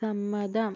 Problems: background sounds at intervals, low volume